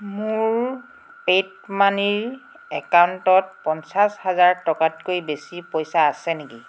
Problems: constant background noise